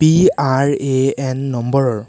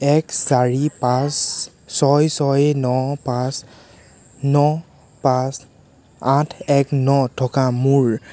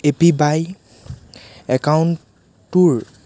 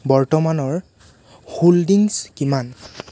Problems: constant background noise